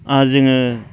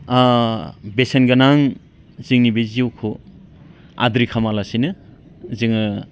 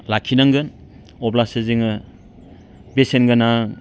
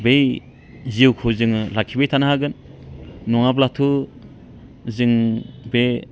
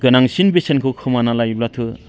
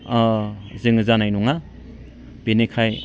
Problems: constant background noise